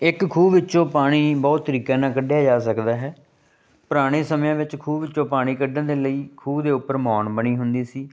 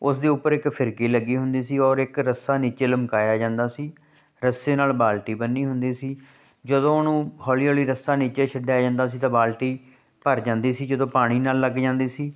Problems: constant background noise